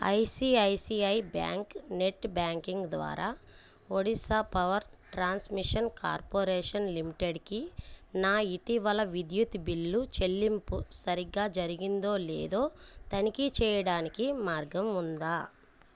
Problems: none marked